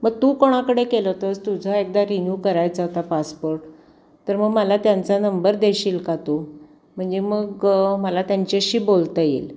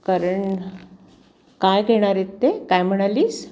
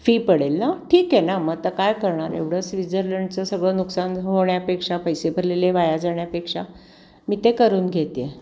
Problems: constant background noise